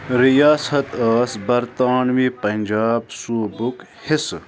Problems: constant background noise